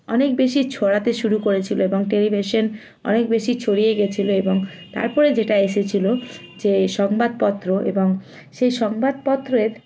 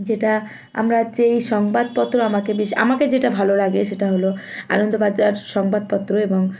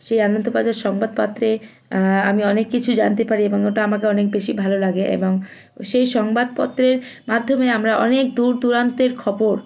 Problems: constant background noise, continuous background conversations